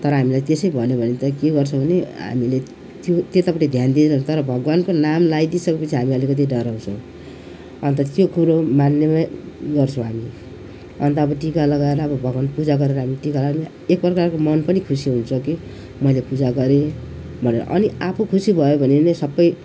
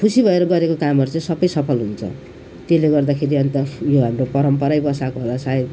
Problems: none marked